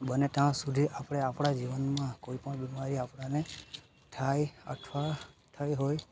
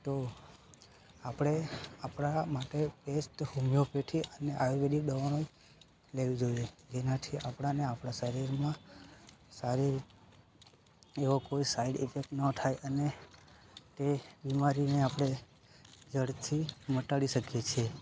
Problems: constant background noise